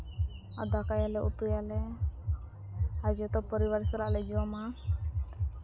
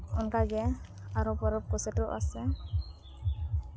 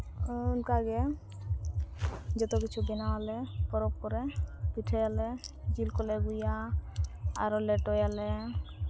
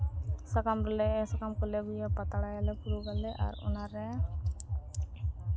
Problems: background conversations at intervals, low volume